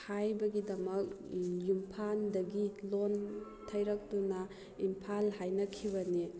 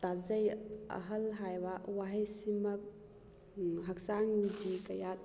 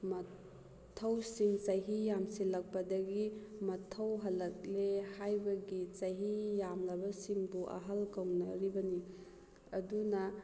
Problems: none marked